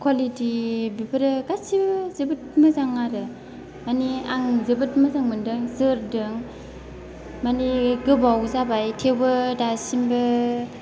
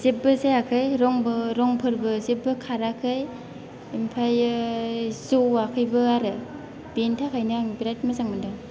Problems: low volume